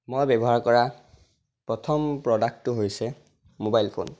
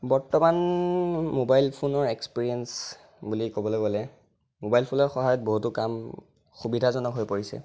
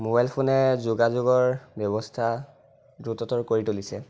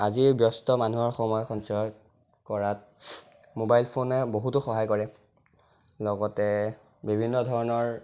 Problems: none marked